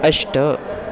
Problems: none marked